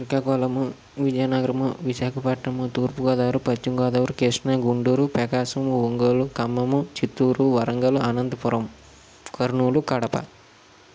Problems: constant background noise